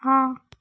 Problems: background sounds at intervals